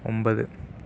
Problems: low volume